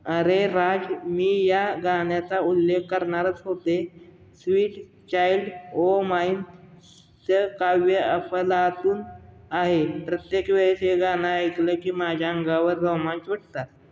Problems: constant background noise